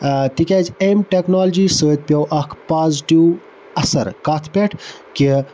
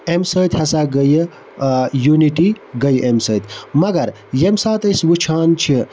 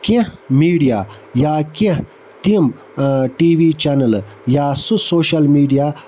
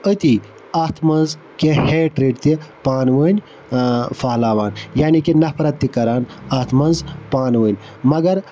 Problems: constant background noise